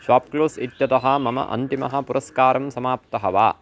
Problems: background sounds at intervals